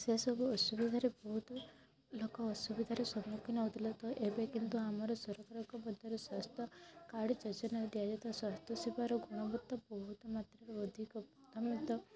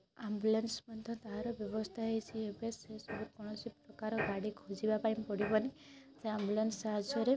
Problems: constant background noise, continuous background conversations